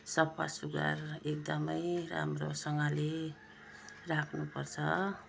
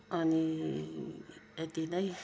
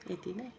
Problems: low volume